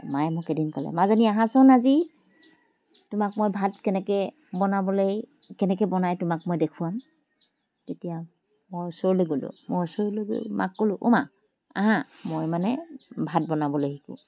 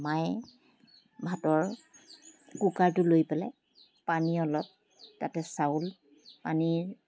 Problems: background sounds at intervals